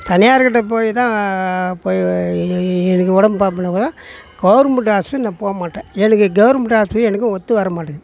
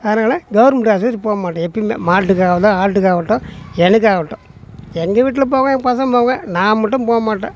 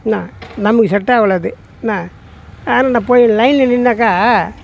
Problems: background sounds at intervals